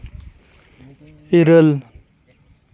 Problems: continuous background conversations